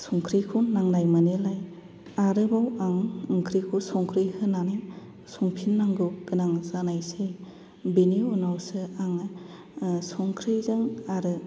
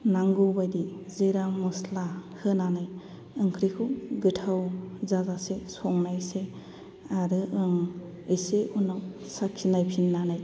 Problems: low volume